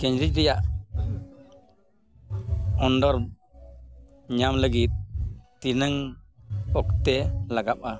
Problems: constant background noise